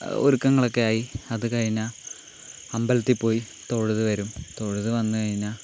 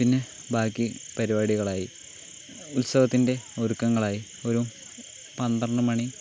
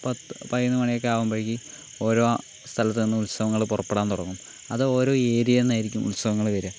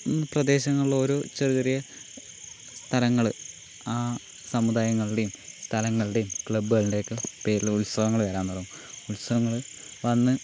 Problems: constant background noise